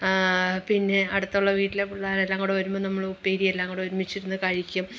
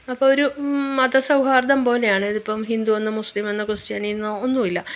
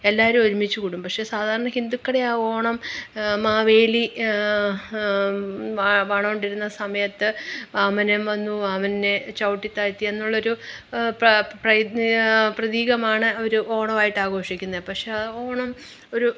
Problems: none marked